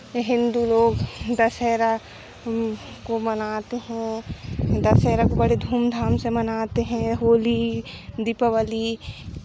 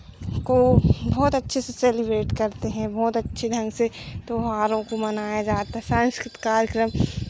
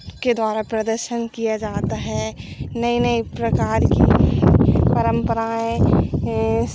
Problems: none marked